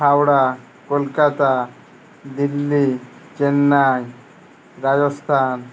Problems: none marked